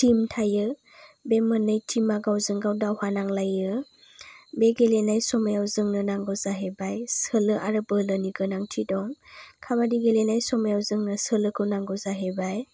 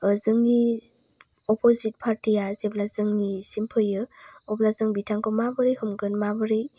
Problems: low volume